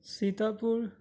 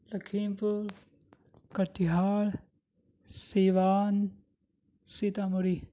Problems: none marked